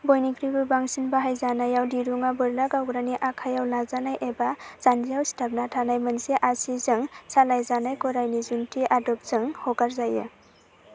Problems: none marked